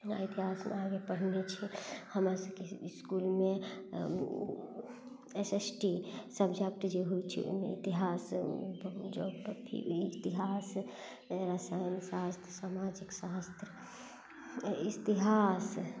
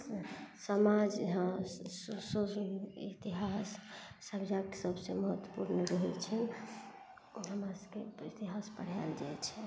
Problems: none marked